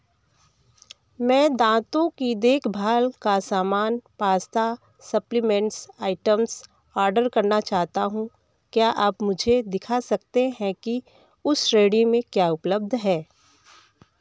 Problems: none marked